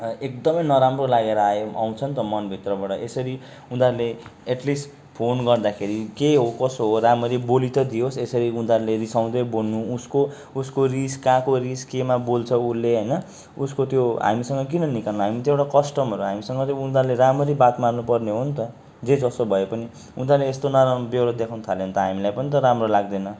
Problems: background sounds at intervals